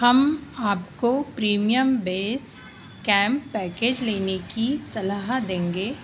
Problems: constant background noise